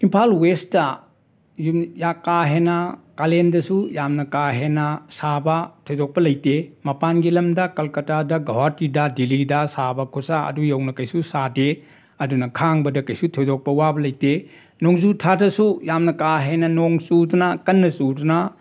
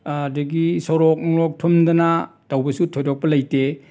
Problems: none marked